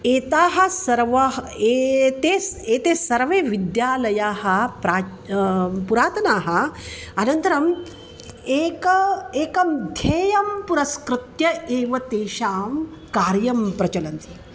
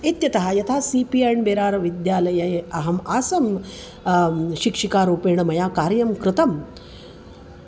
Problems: constant background noise